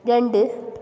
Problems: constant background noise